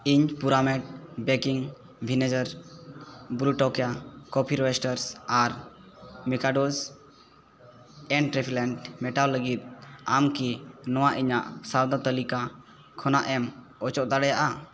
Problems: constant background noise